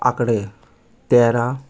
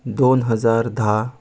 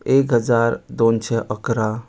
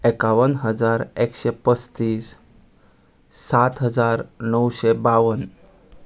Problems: background sounds at intervals